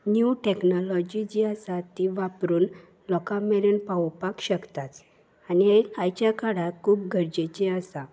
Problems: none marked